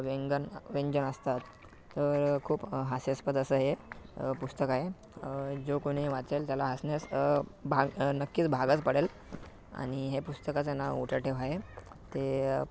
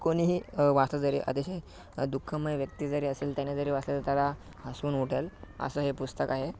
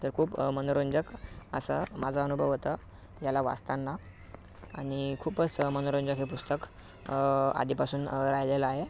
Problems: background sounds at intervals, background conversations at intervals